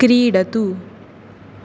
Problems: constant background noise